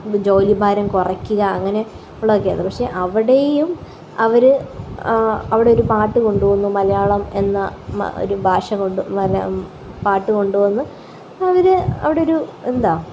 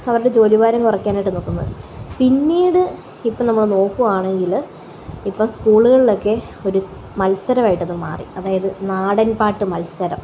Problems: constant background noise, background conversations at intervals